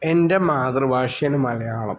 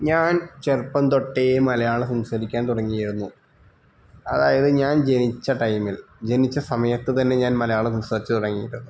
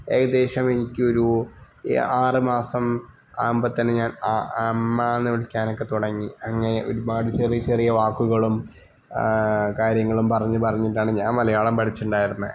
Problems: none marked